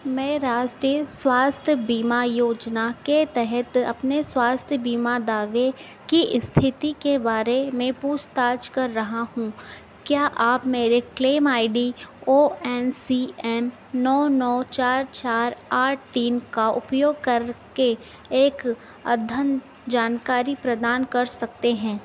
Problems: constant background noise